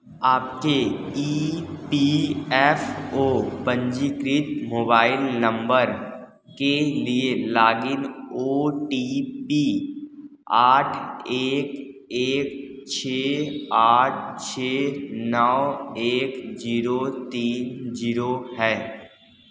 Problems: constant background noise